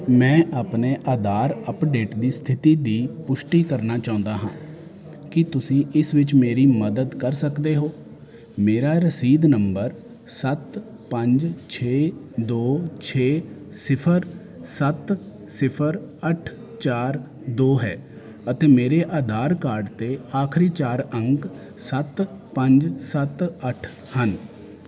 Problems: constant background noise